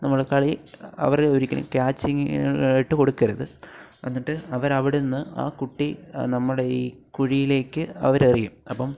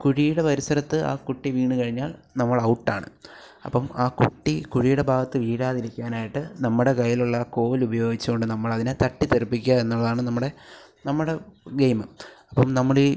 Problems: none marked